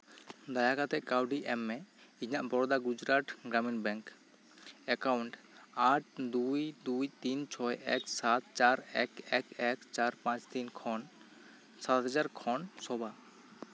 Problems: constant background noise